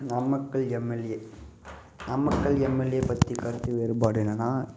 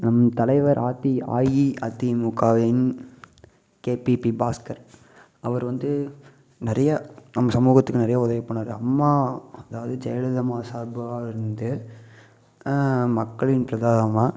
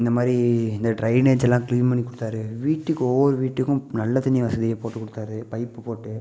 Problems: none marked